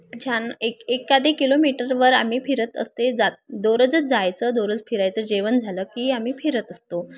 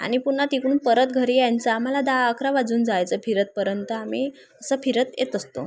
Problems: background sounds at intervals, background conversations at intervals